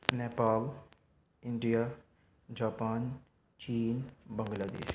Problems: background sounds at intervals